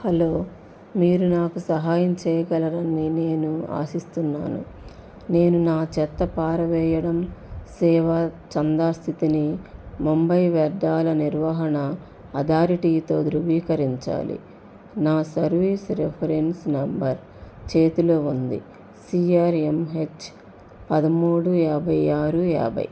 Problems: constant background noise